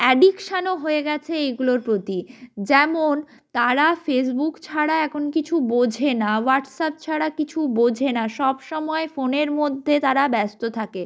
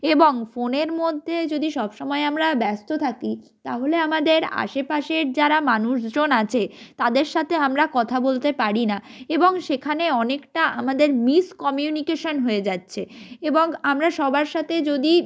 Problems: none marked